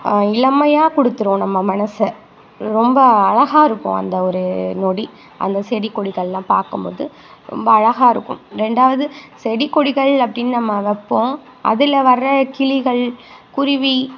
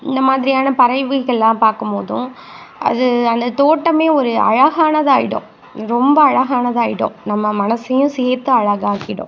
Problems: constant background noise